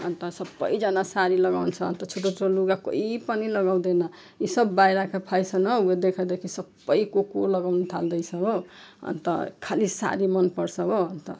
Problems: none marked